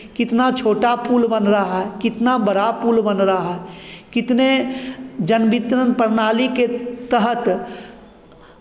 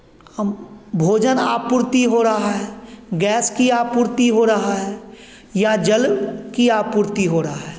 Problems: none marked